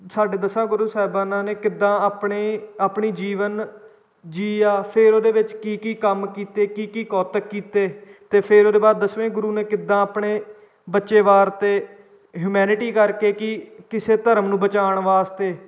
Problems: background sounds at intervals